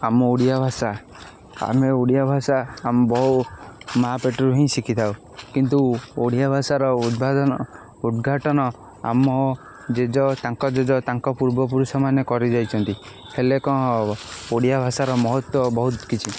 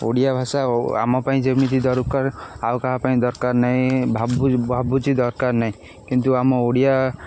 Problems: constant background noise